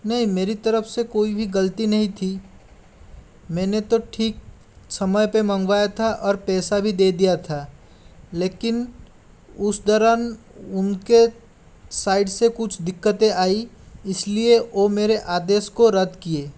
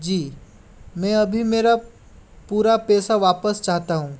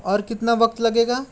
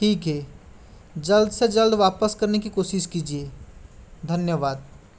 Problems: none marked